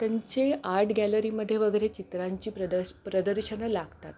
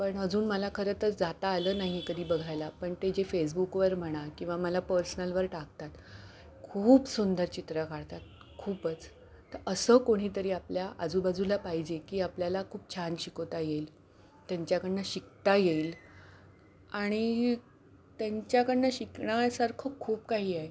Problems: background sounds at intervals